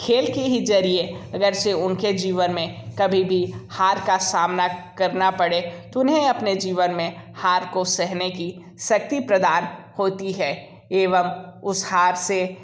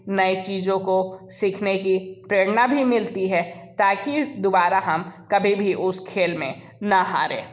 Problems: background sounds at intervals